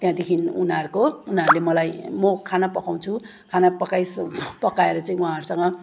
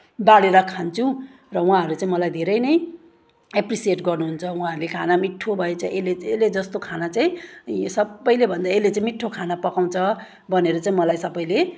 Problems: none marked